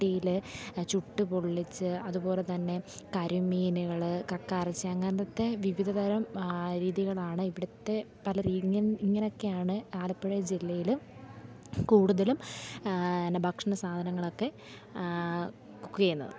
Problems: none marked